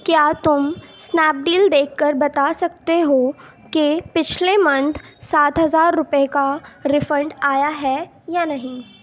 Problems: background sounds at intervals